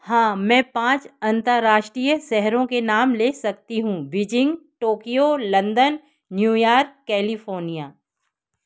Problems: none marked